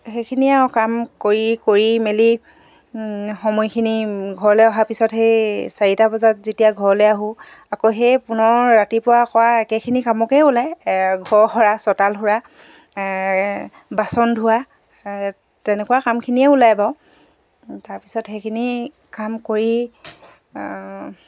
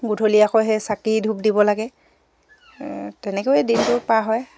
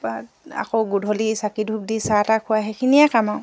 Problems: background sounds at intervals